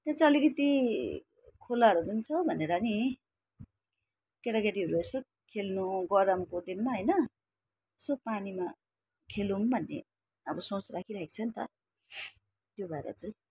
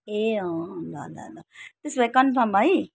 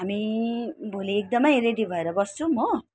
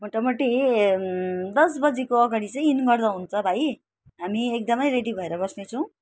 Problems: none marked